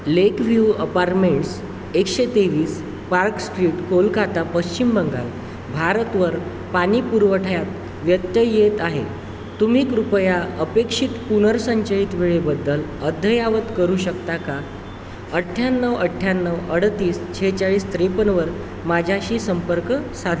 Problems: constant background noise